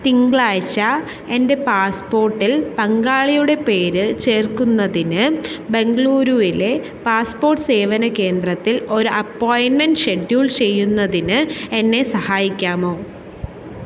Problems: constant background noise